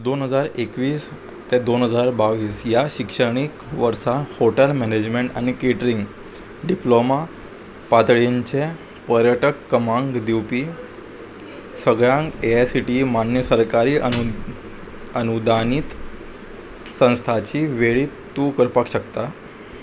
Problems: constant background noise